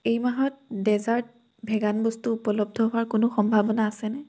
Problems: none marked